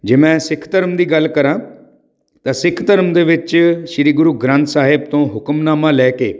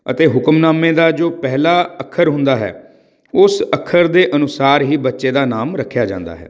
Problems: none marked